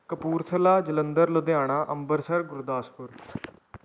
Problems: background sounds at intervals